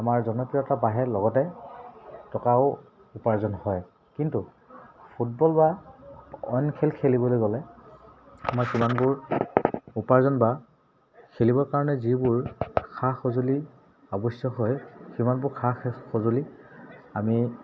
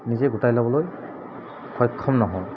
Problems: background sounds at intervals